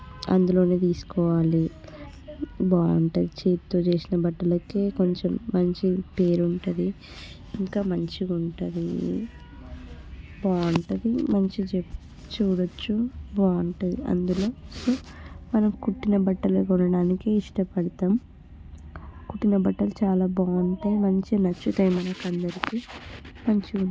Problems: constant background noise, background conversations at intervals